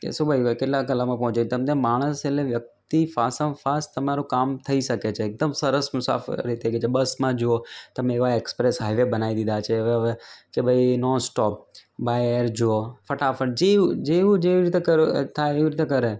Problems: none marked